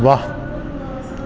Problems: constant background noise, echo